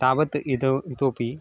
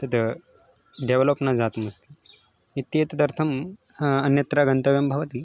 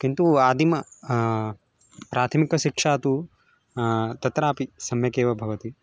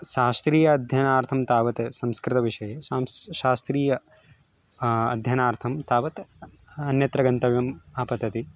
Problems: constant background noise